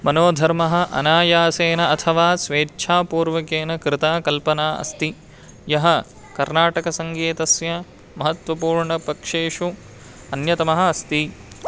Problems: constant background noise